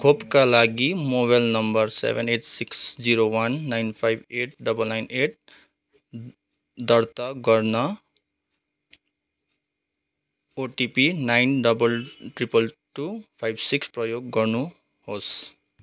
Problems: none marked